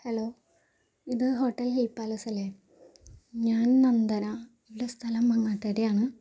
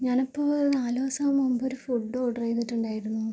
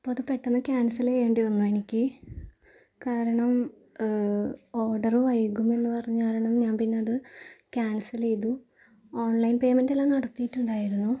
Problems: low volume